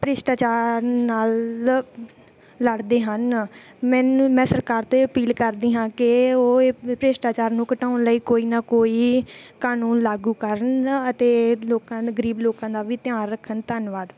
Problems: none marked